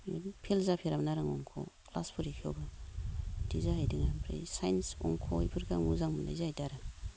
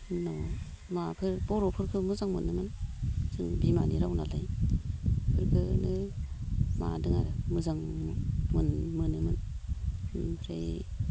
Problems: low volume